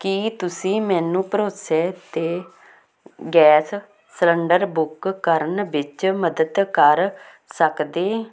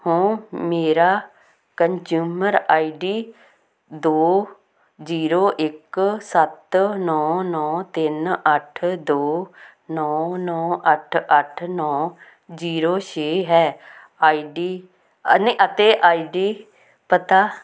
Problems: constant background noise